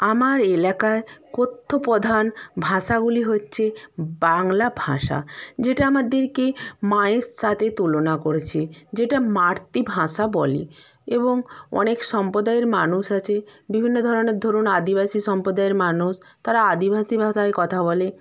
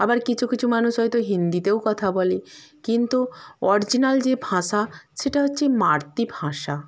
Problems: constant background noise